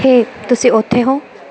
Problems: constant background noise